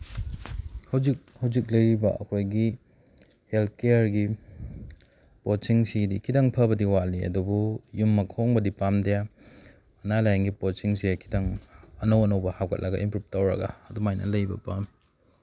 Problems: none marked